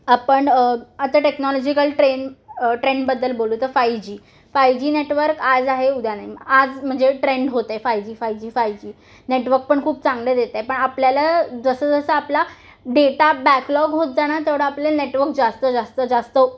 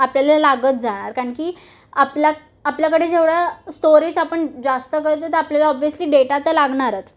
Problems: constant background noise